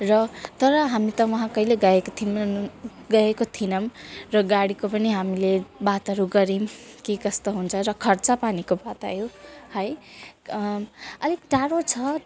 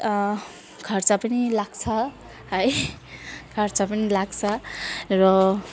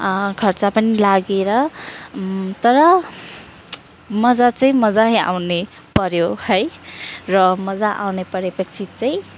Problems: none marked